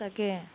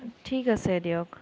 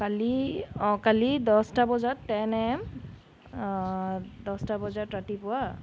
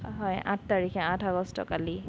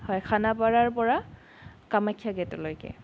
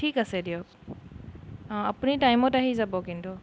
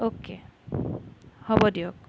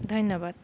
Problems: background sounds at intervals, background conversations at intervals